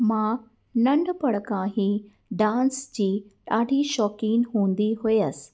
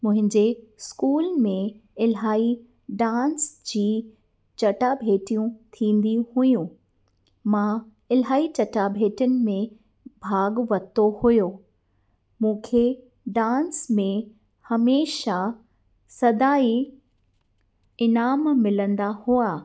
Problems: none marked